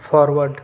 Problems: none marked